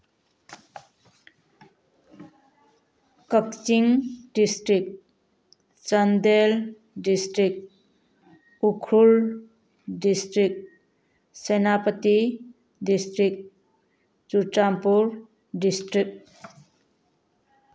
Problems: background sounds at intervals